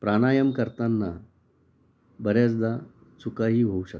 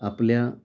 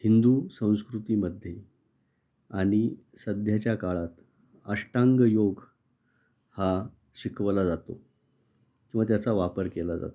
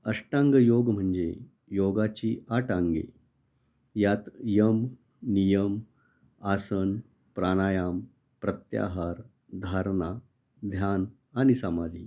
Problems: background sounds at intervals